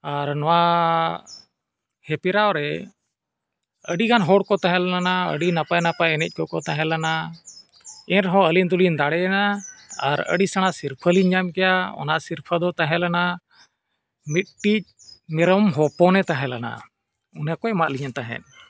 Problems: background sounds at intervals